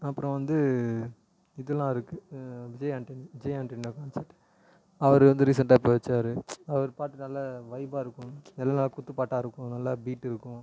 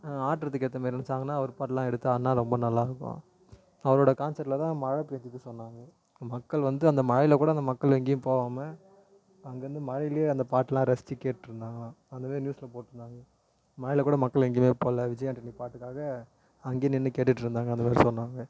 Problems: low volume